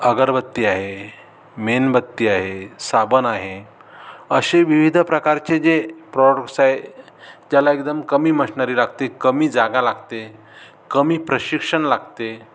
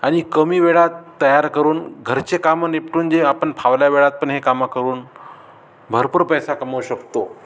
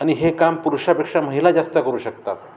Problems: background sounds at intervals